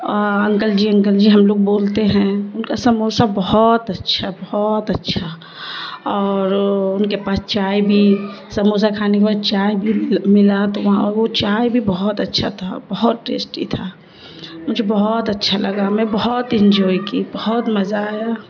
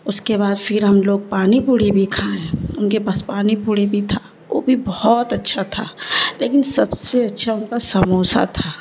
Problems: constant background noise